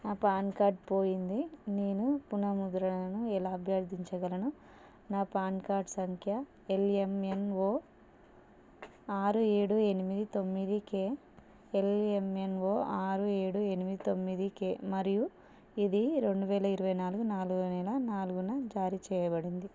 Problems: none marked